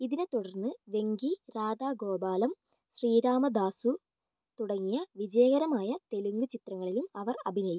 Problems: low volume